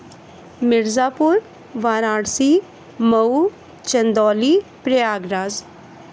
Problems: constant background noise